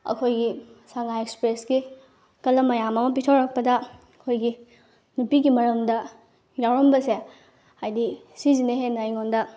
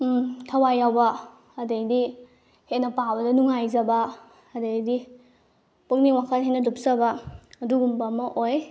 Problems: background sounds at intervals